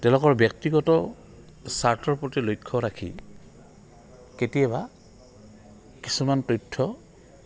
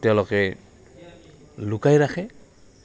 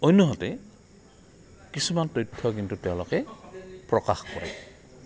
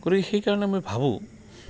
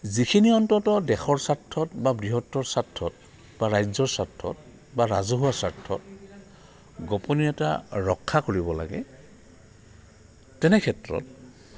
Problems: none marked